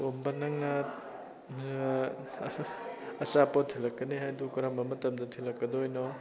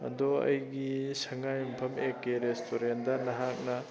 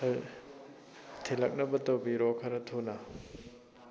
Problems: constant background noise, continuous background conversations